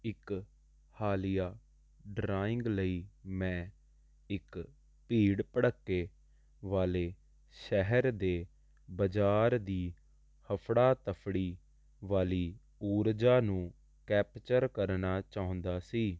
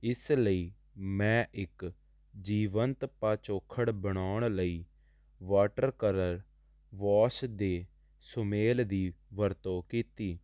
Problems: constant background noise